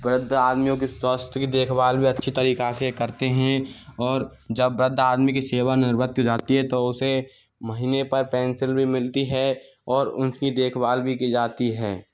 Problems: none marked